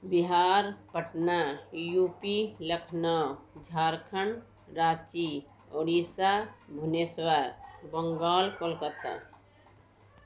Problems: constant background noise